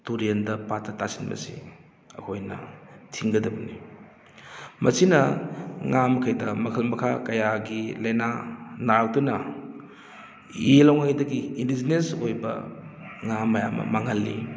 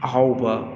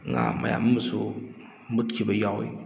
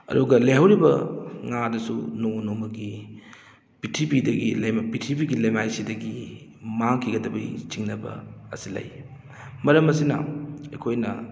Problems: background sounds at intervals